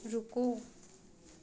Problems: constant background noise